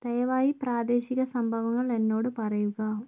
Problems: low volume